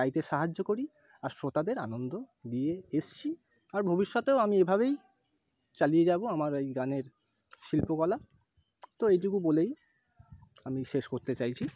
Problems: background sounds at intervals